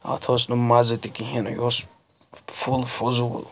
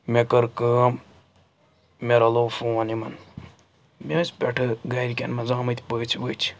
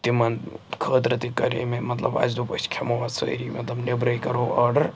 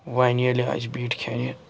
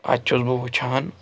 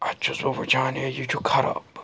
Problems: background sounds at intervals